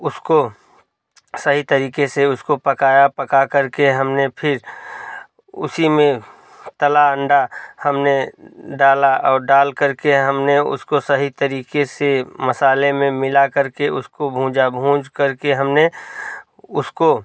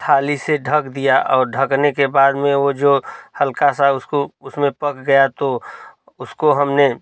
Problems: none marked